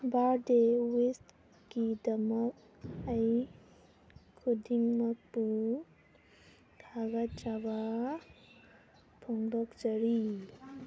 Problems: background sounds at intervals